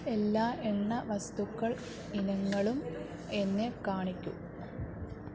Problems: low volume